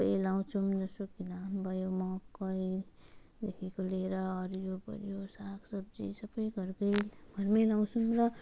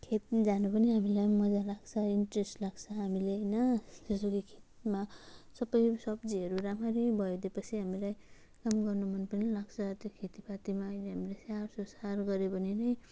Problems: none marked